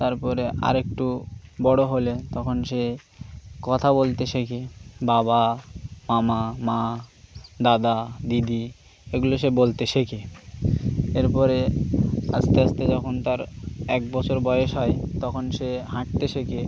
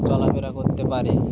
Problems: none marked